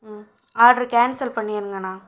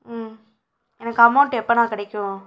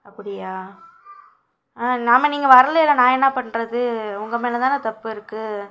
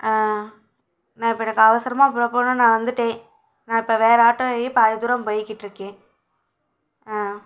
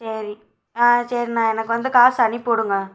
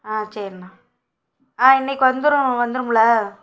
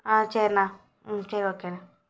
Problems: none marked